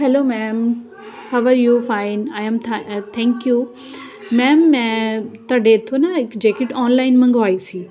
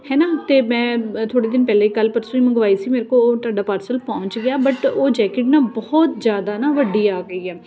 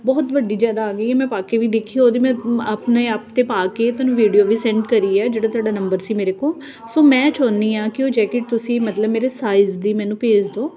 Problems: none marked